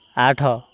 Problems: none marked